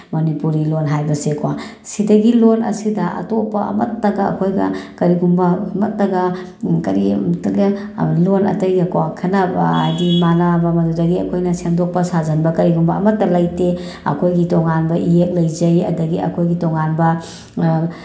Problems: background sounds at intervals